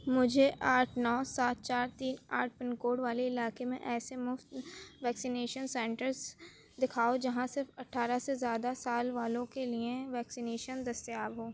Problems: none marked